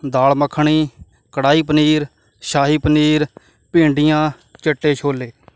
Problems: none marked